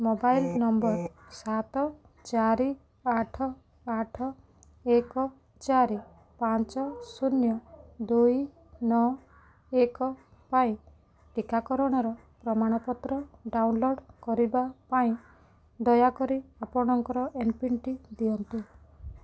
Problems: none marked